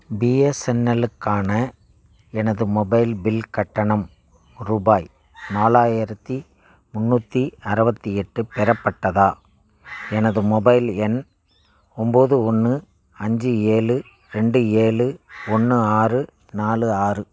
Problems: background sounds at intervals